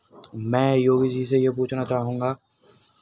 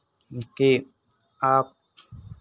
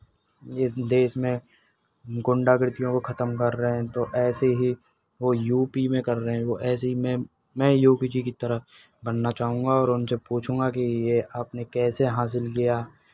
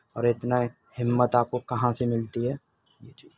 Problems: none marked